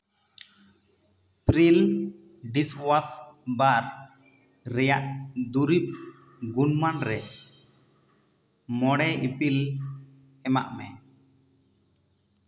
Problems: echo